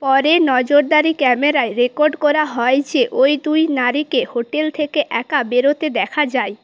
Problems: none marked